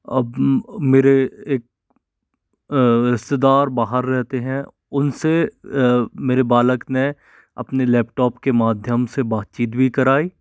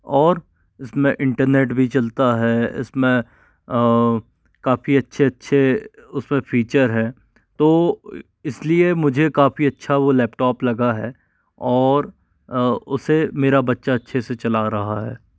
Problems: none marked